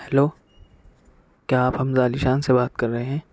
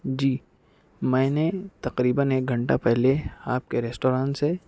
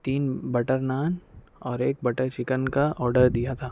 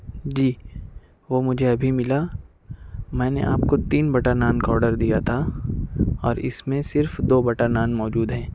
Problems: none marked